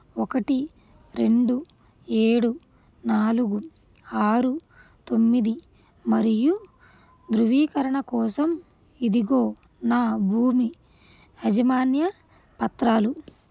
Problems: none marked